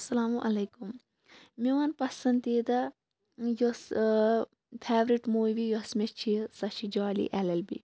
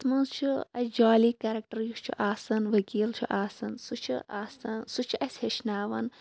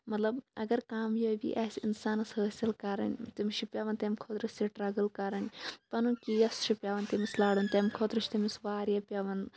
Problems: constant background noise